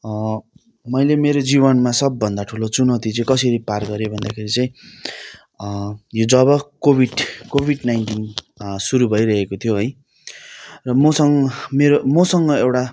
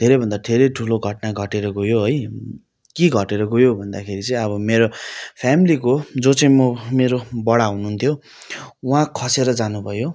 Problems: background sounds at intervals